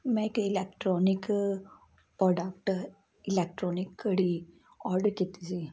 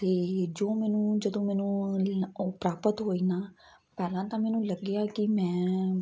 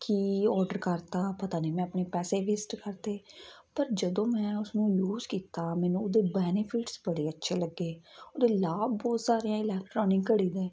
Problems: constant background noise